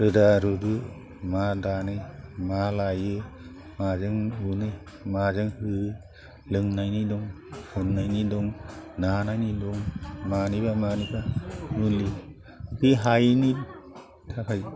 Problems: low volume